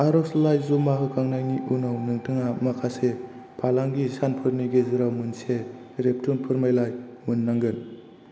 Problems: constant background noise